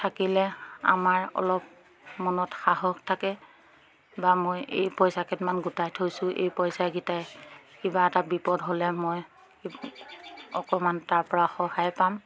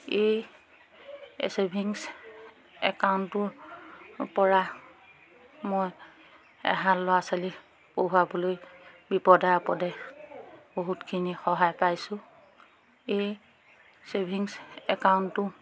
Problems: background sounds at intervals, background conversations at intervals